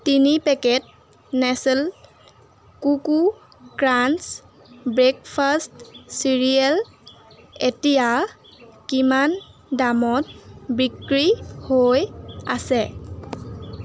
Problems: constant background noise